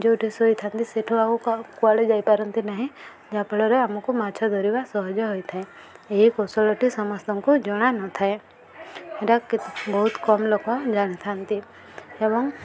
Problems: constant background noise, continuous background conversations